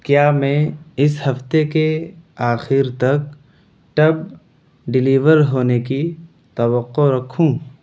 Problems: none marked